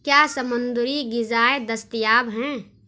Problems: none marked